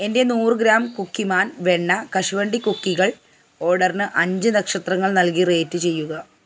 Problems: none marked